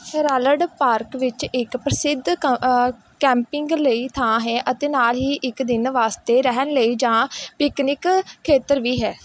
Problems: background sounds at intervals